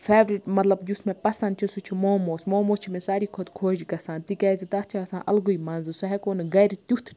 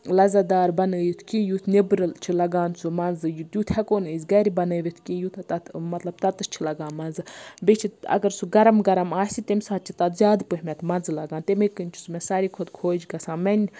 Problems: background sounds at intervals